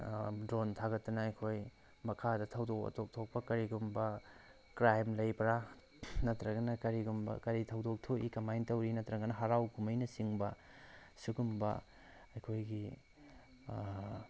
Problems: background sounds at intervals